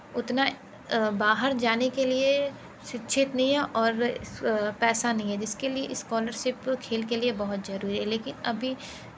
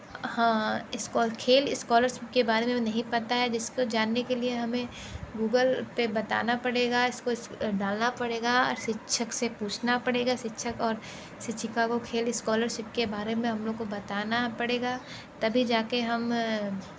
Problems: background sounds at intervals